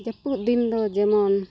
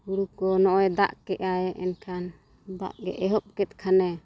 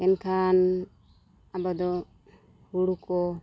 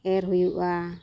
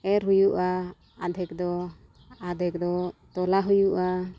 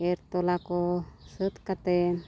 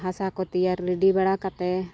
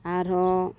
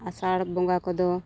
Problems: background sounds at intervals